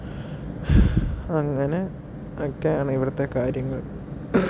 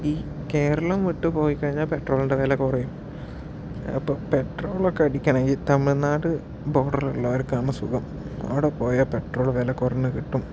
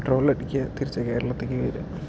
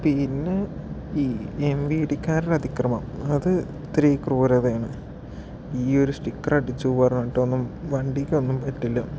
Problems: background sounds at intervals, low volume